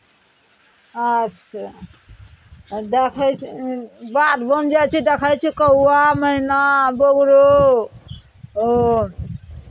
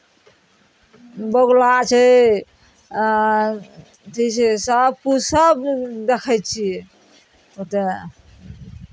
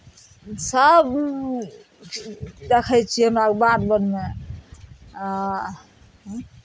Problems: none marked